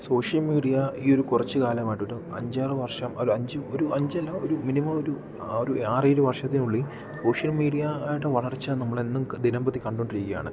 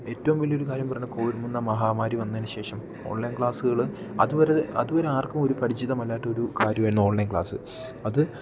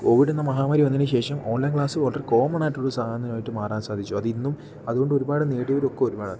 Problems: none marked